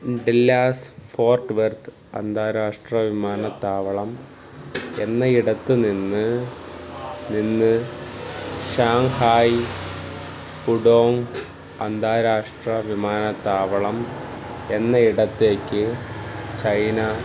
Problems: none marked